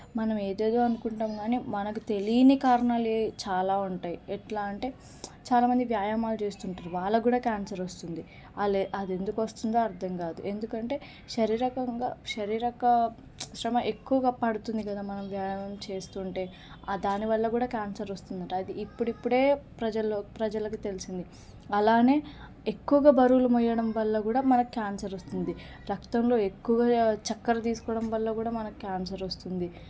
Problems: none marked